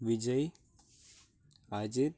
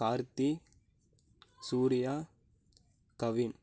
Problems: low volume